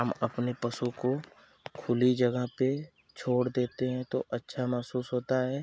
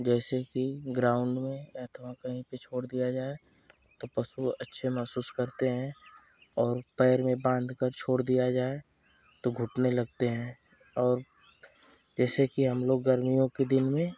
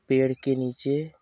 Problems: constant background noise